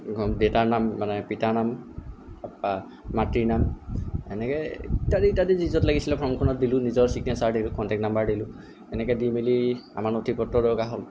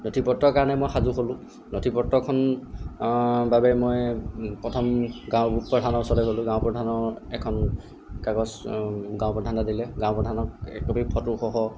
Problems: background sounds at intervals